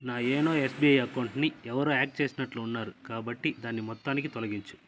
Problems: background sounds at intervals